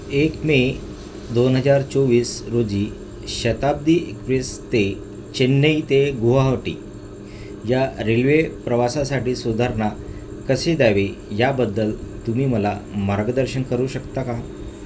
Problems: constant background noise